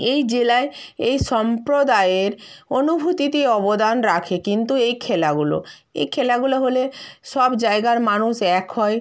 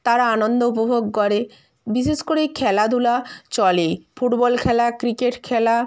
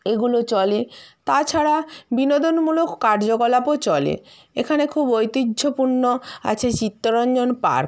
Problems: constant background noise